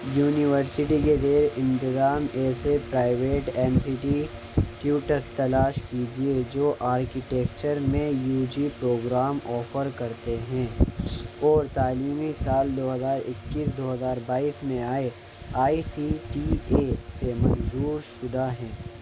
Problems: constant background noise